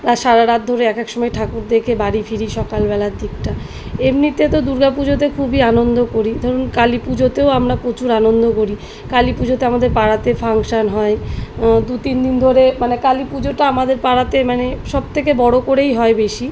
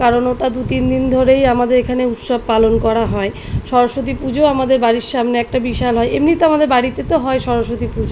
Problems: background sounds at intervals